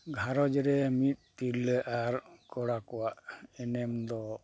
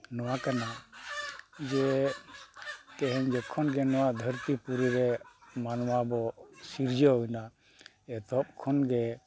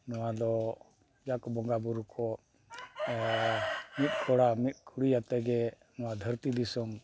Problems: background sounds at intervals